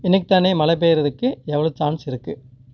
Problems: constant background noise